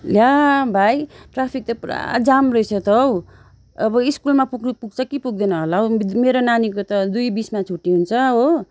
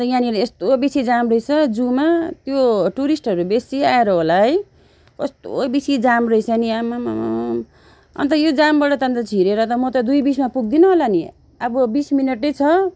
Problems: background sounds at intervals